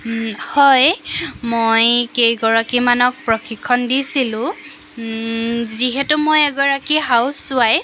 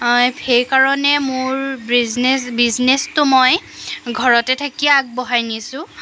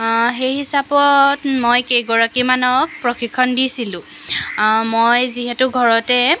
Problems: constant background noise